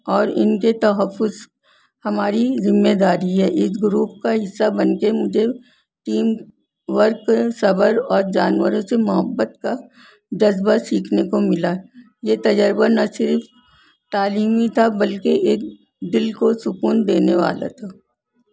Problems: none marked